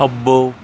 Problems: constant background noise